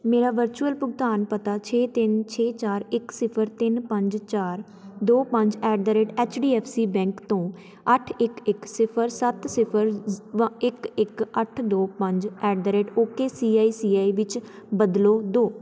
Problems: background conversations at intervals